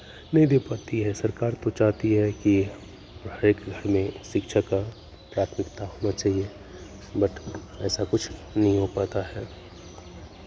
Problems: constant background noise